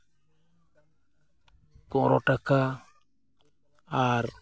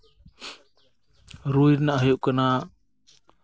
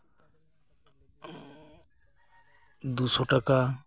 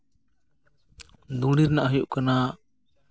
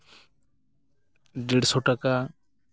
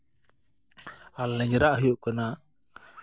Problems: background sounds at intervals, background conversations at intervals